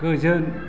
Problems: constant background noise